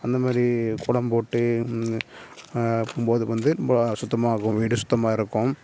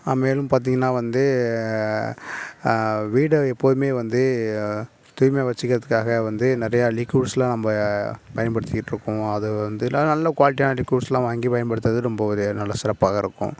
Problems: none marked